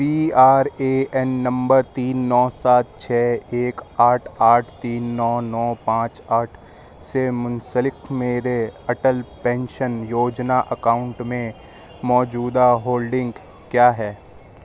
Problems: background sounds at intervals